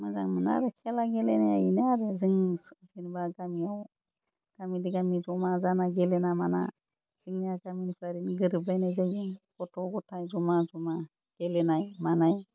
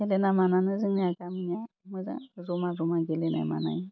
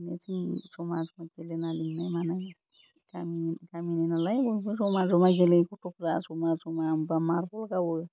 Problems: none marked